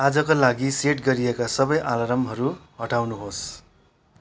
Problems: background sounds at intervals